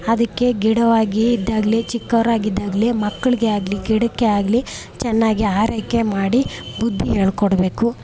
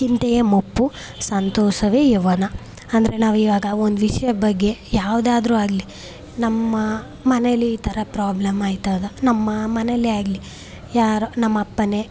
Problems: none marked